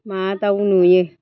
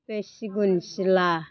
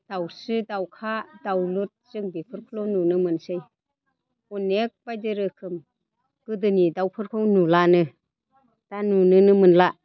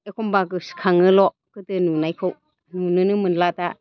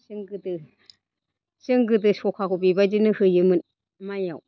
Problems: constant background noise